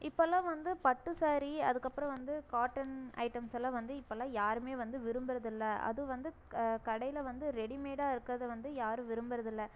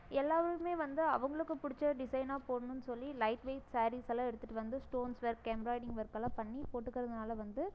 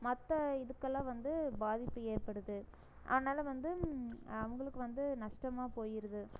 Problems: none marked